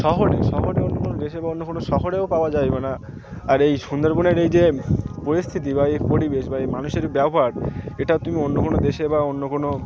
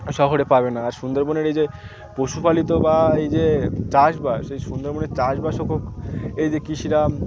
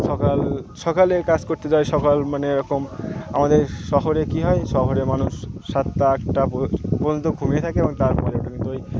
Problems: constant background noise, continuous background conversations